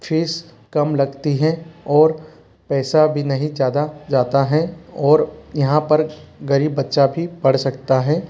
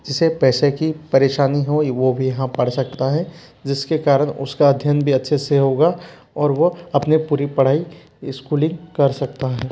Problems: constant background noise, low volume